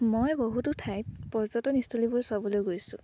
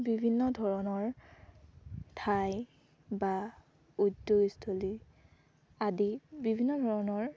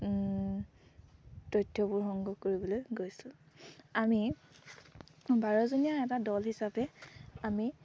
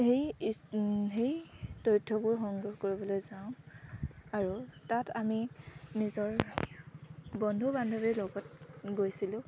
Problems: none marked